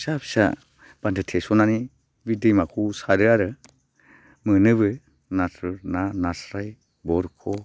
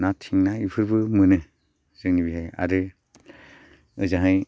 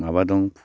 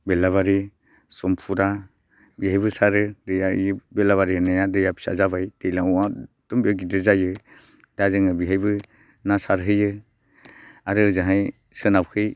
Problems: constant background noise